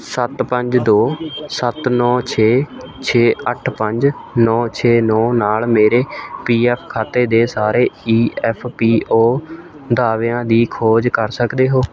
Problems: continuous background conversations